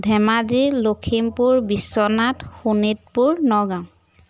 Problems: constant background noise